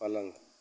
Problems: constant background noise